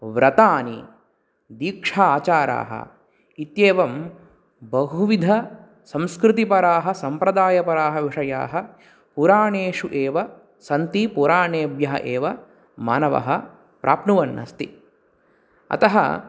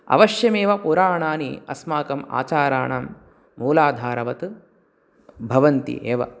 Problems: none marked